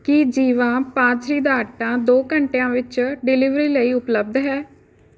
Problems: background conversations at intervals